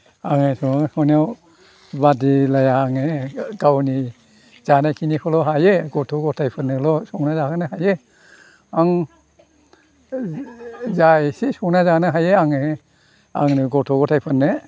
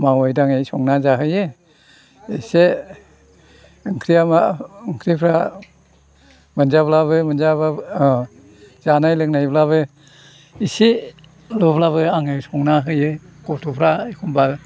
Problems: constant background noise